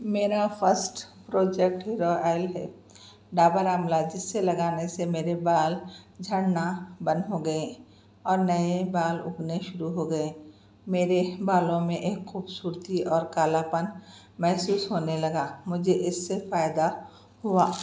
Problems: none marked